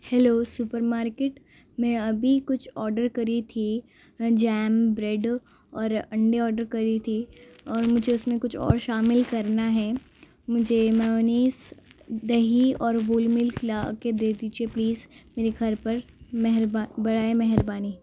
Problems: constant background noise, low volume